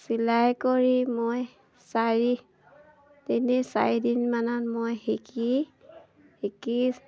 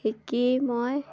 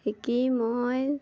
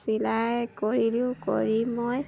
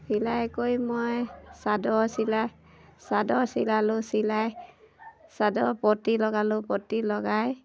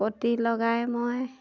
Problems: none marked